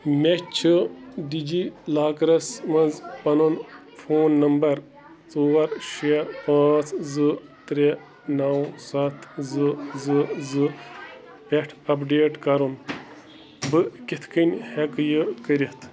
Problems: constant background noise